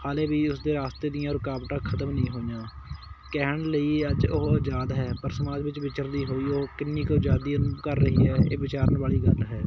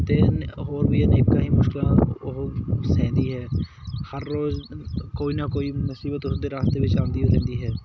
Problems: constant background noise